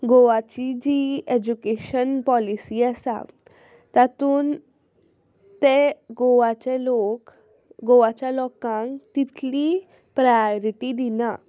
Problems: none marked